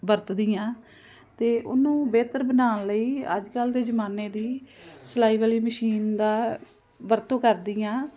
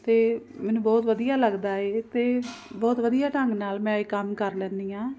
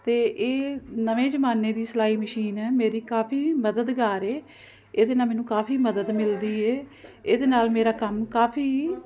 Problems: constant background noise